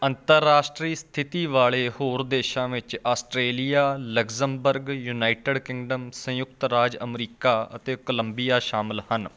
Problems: constant background noise